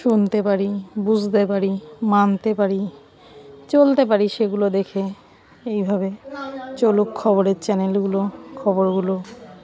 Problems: background sounds at intervals